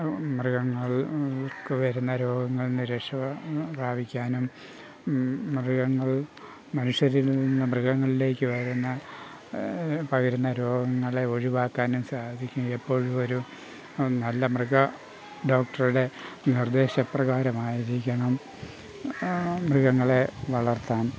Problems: constant background noise